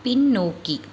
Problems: constant background noise